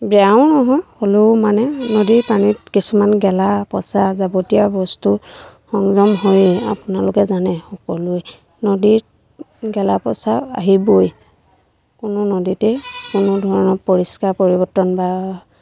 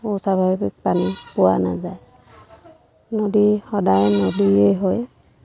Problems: constant background noise, background conversations at intervals